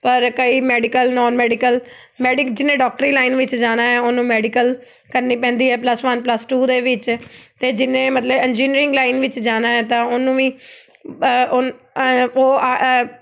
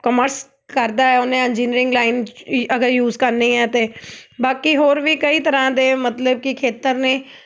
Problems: background sounds at intervals